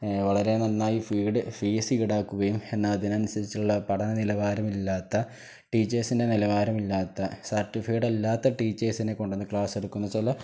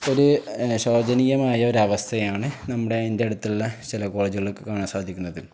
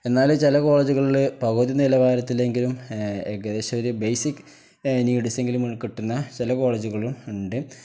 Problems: none marked